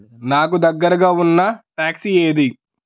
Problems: background conversations at intervals